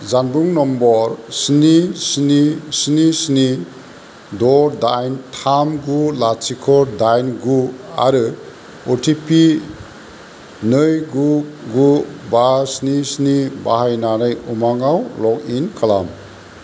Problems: constant background noise